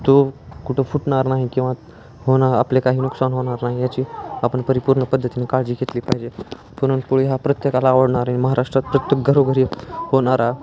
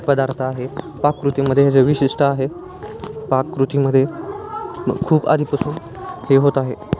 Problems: constant background noise, continuous background conversations